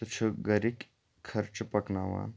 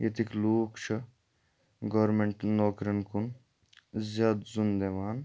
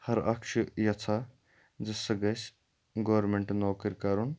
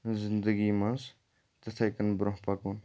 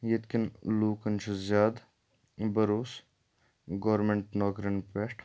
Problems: background sounds at intervals